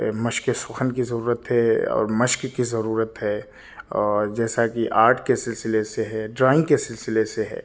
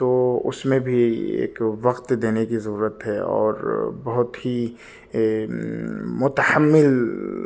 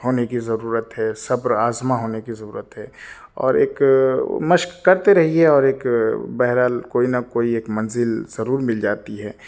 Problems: none marked